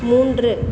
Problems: background sounds at intervals